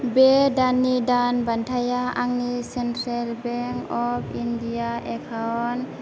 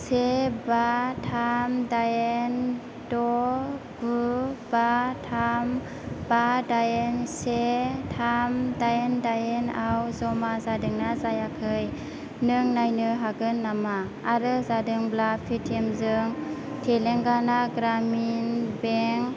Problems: constant background noise, background conversations at intervals